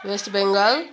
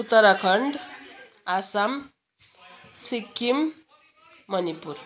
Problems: background sounds at intervals, background conversations at intervals